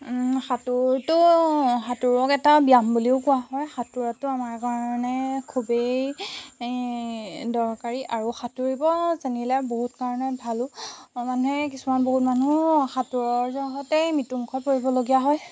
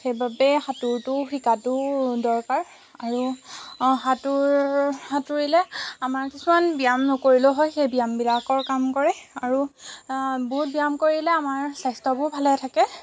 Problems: constant background noise